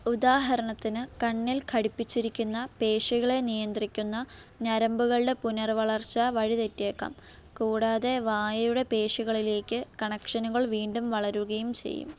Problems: none marked